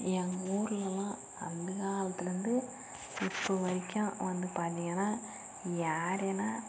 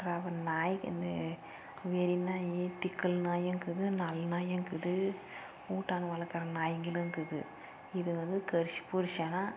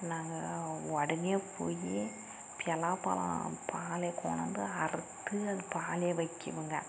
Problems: constant background noise, low volume